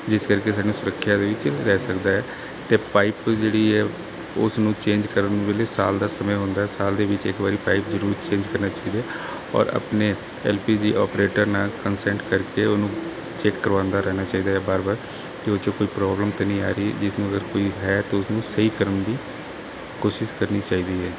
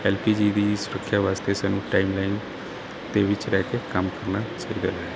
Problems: none marked